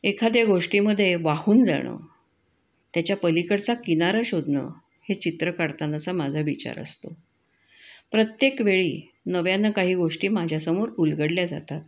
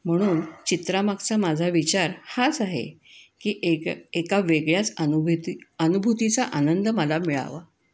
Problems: background sounds at intervals, echo